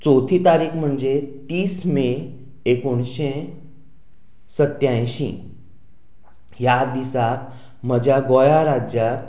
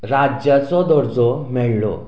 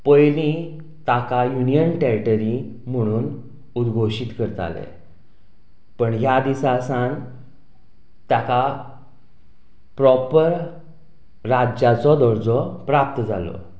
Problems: background sounds at intervals, background conversations at intervals